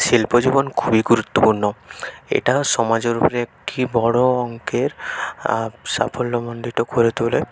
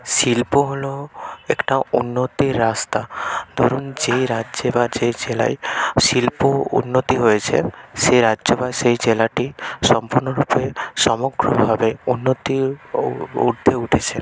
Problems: background sounds at intervals